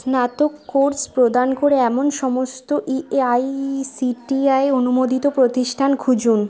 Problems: constant background noise, continuous background conversations